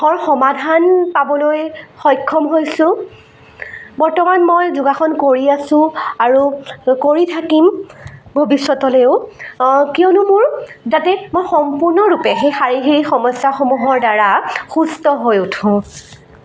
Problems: constant background noise, continuous background conversations